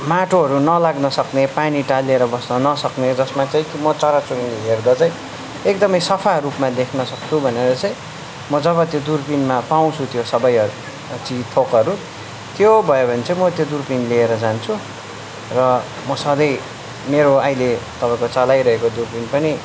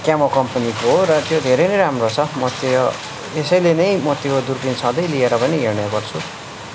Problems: constant background noise